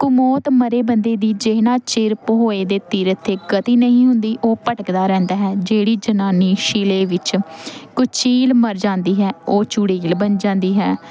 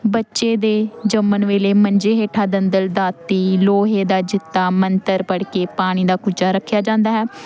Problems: constant background noise